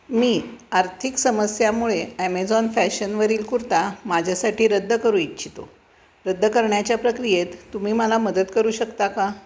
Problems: constant background noise, background conversations at intervals